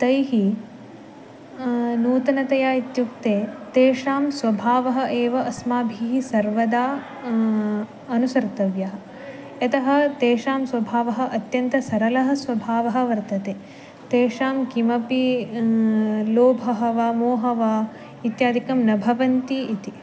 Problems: background sounds at intervals